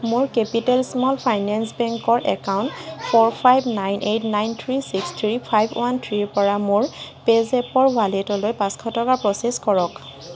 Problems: constant background noise